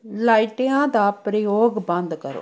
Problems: background conversations at intervals